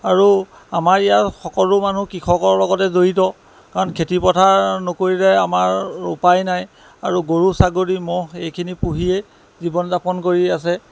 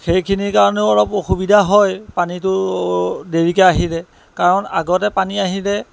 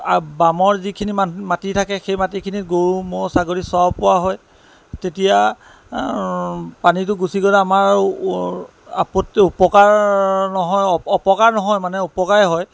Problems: constant background noise